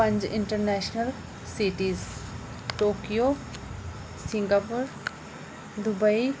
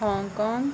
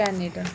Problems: constant background noise